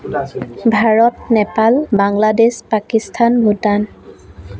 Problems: background sounds at intervals